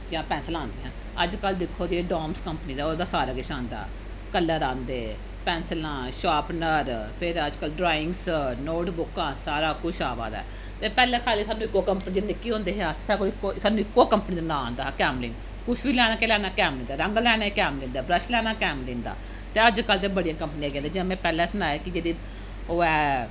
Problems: none marked